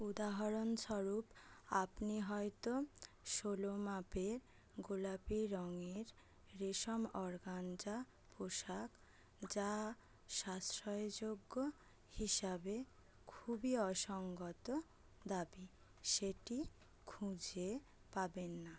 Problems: none marked